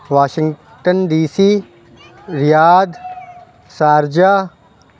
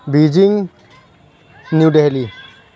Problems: constant background noise, background conversations at intervals